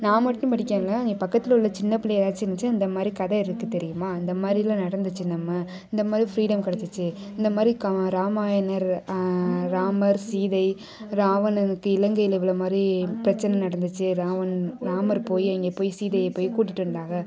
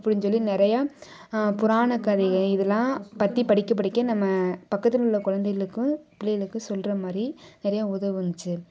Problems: background conversations at intervals